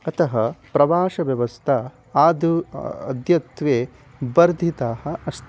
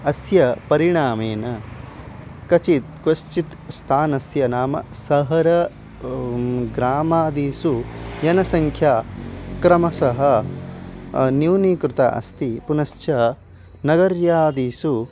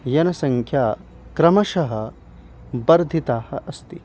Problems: none marked